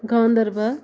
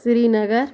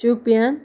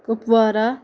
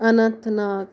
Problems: none marked